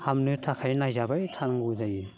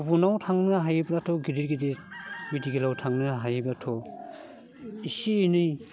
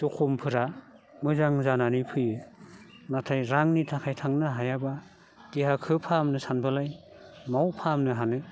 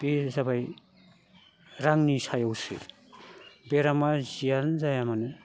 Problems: none marked